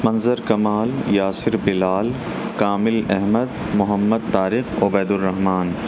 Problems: constant background noise